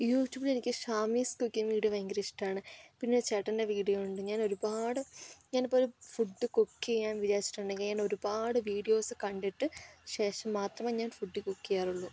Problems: none marked